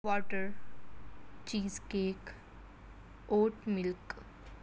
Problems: constant background noise